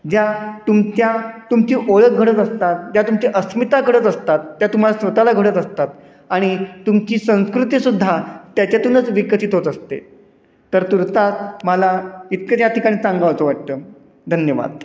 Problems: constant background noise, echo